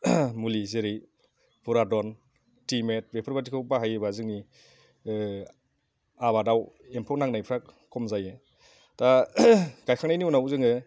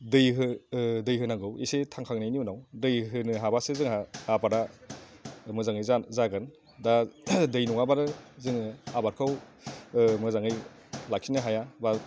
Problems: low volume